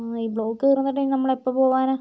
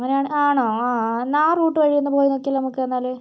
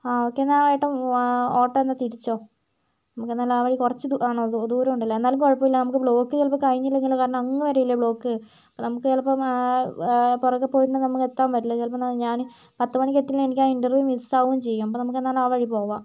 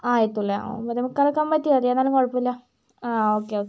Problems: none marked